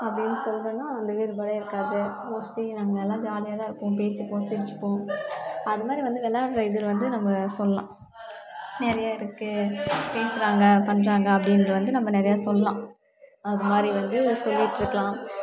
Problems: none marked